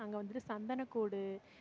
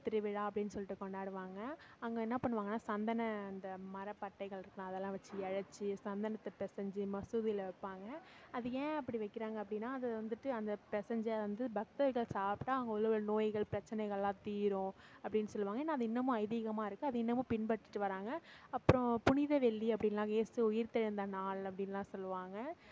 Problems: background sounds at intervals, background conversations at intervals